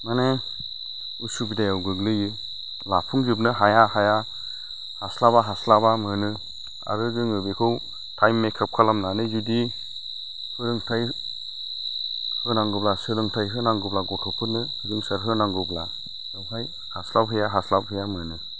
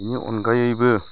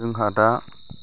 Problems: constant background noise